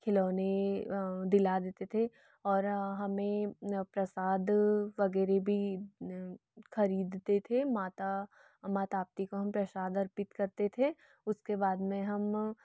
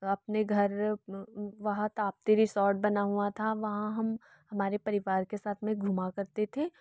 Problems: none marked